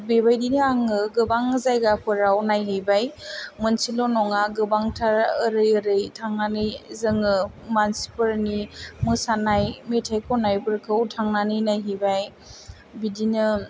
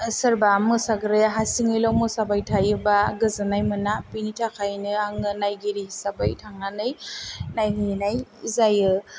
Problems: low volume